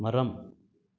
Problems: none marked